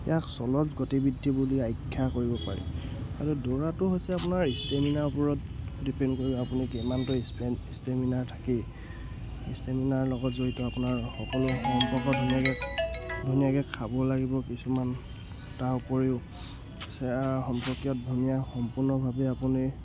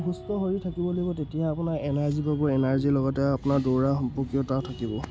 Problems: background sounds at intervals